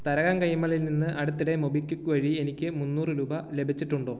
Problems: none marked